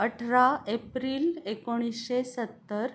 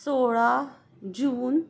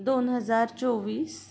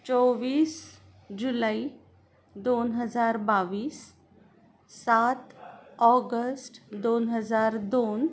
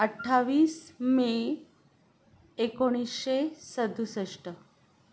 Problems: background sounds at intervals